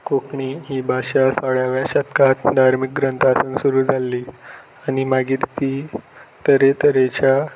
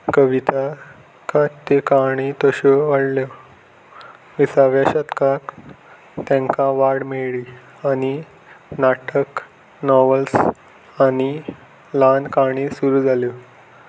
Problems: background sounds at intervals